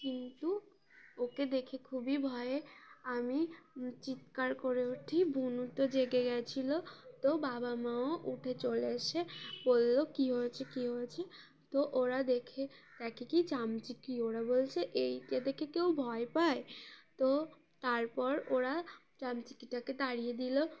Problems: none marked